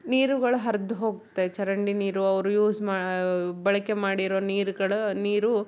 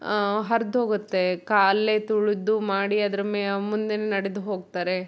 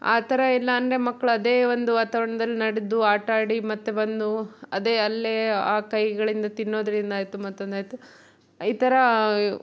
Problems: none marked